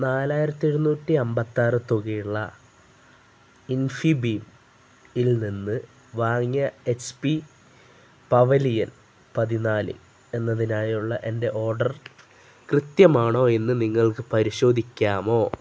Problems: none marked